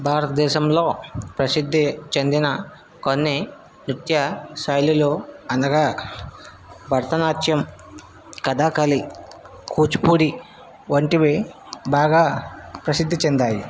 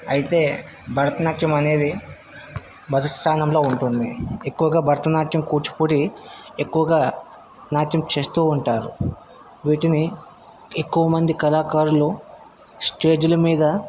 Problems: constant background noise